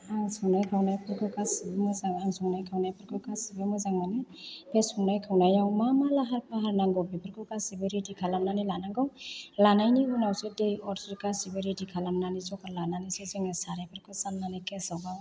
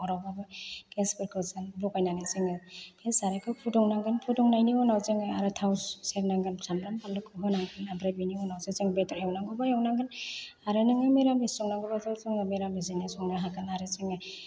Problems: low volume